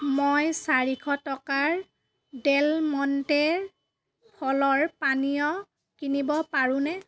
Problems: background sounds at intervals